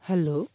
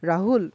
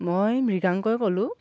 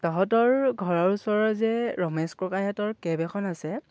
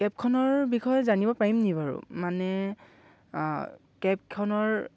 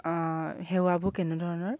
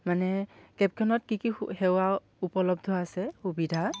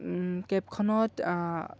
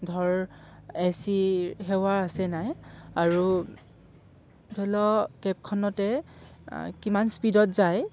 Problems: background sounds at intervals